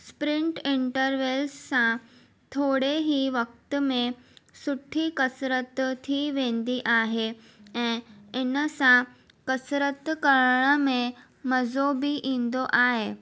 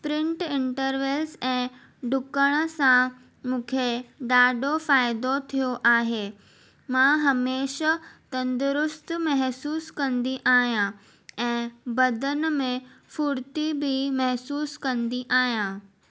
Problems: none marked